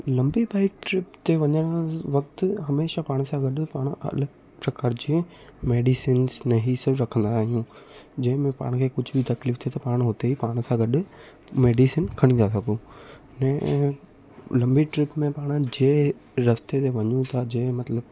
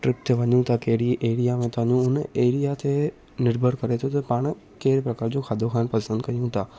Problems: constant background noise, echo